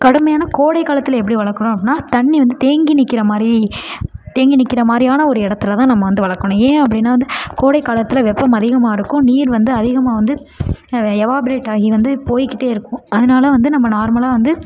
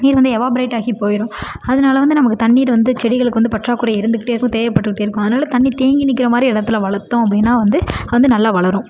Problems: low volume